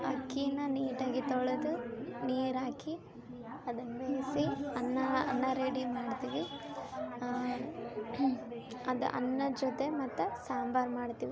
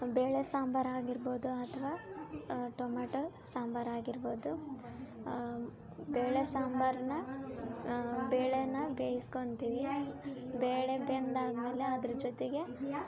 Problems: background sounds at intervals